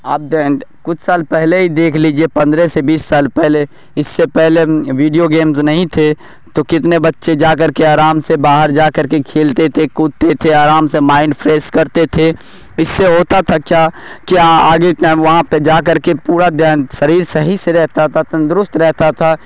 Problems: none marked